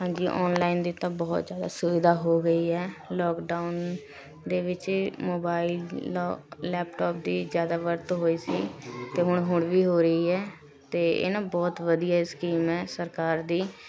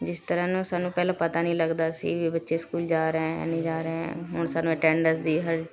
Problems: continuous background conversations